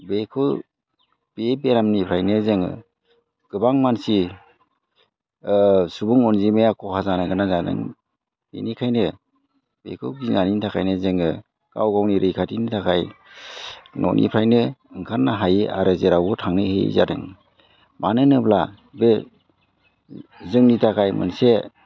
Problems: background sounds at intervals